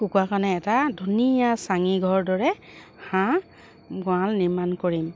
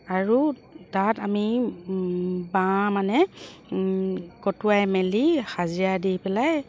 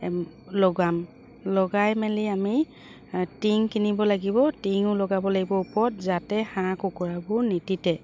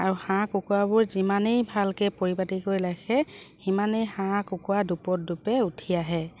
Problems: none marked